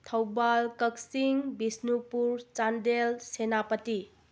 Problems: low volume